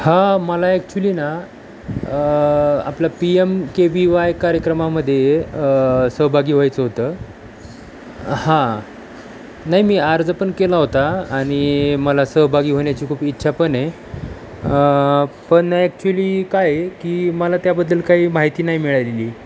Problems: constant background noise